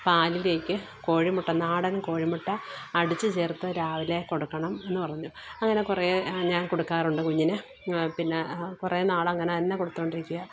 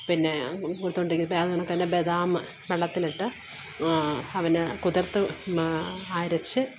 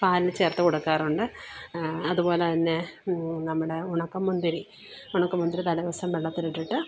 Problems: background sounds at intervals